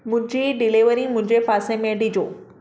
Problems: background sounds at intervals